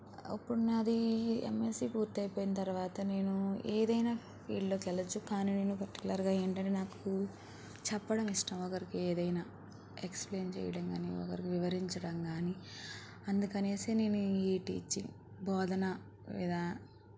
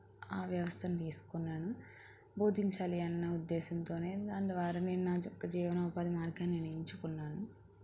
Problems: constant background noise, low volume